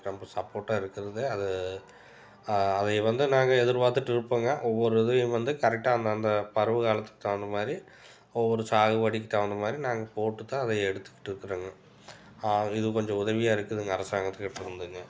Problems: background sounds at intervals